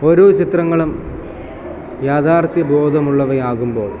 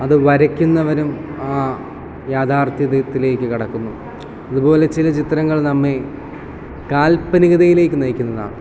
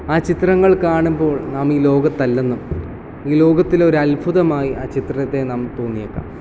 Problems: constant background noise